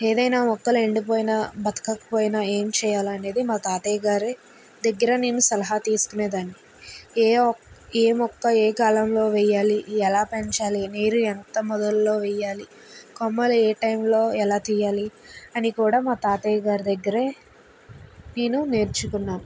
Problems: constant background noise